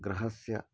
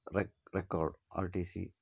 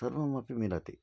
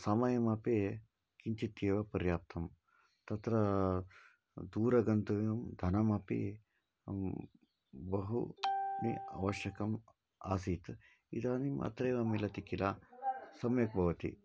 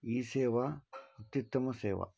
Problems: low volume